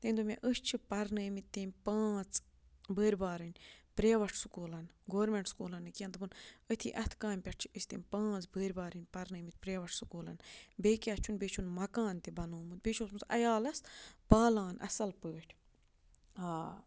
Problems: low volume